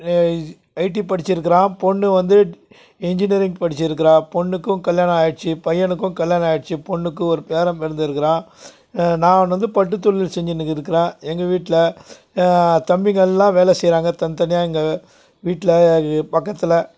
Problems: constant background noise